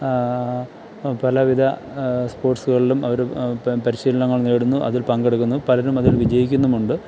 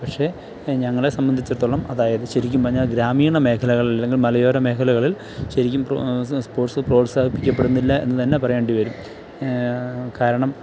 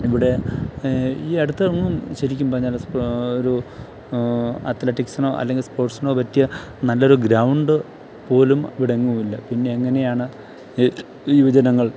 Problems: none marked